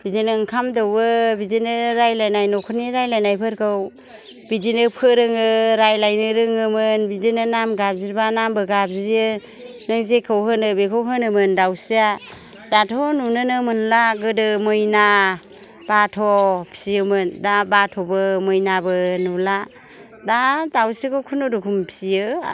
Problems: none marked